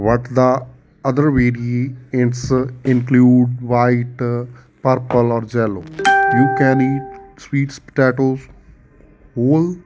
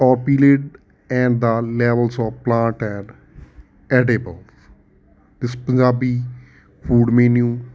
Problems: none marked